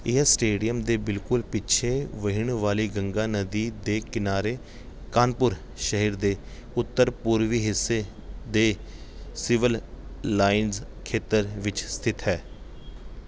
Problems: background sounds at intervals